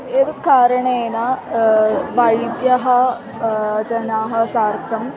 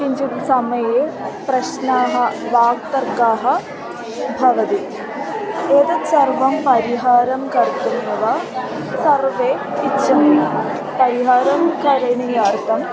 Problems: constant background noise, continuous background conversations